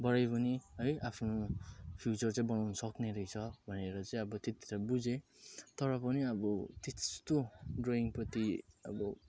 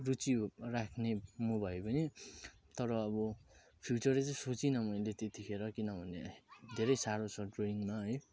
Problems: none marked